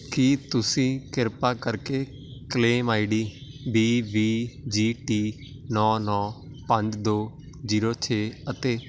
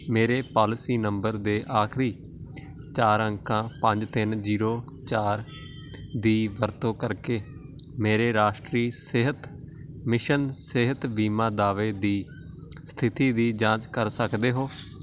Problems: constant background noise